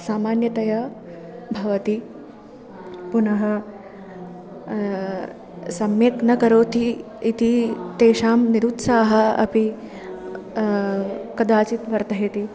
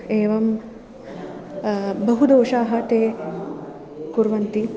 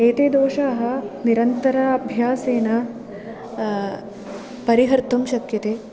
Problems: none marked